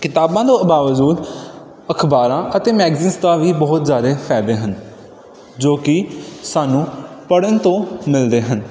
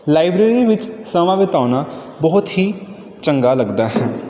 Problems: none marked